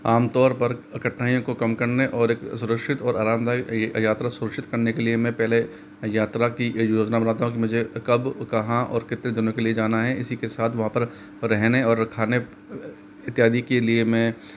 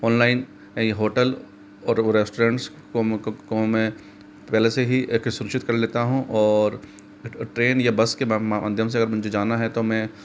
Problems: constant background noise